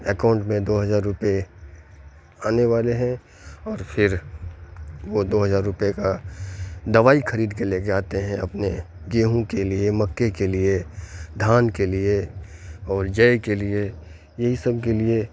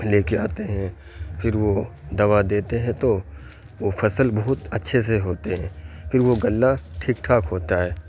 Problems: constant background noise